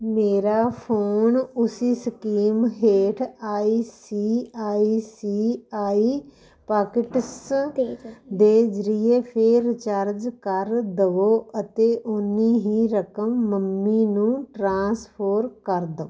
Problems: none marked